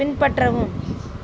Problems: background sounds at intervals